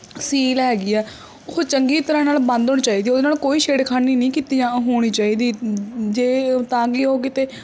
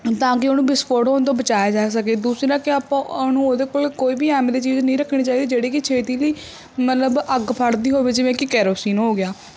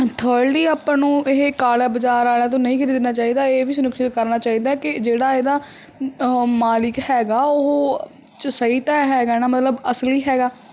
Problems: background sounds at intervals